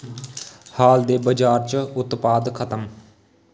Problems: background sounds at intervals, echo